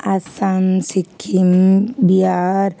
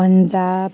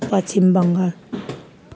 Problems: constant background noise